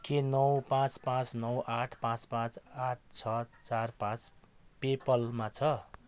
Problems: none marked